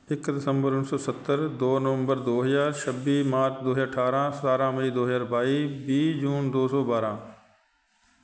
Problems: constant background noise